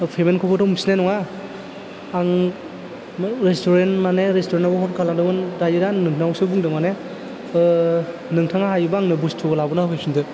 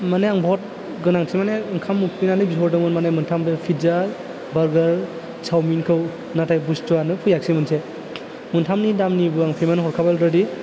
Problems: low volume